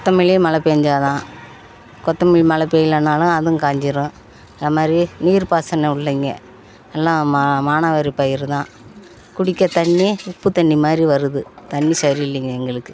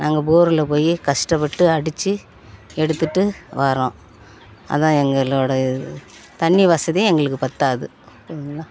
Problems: constant background noise, background conversations at intervals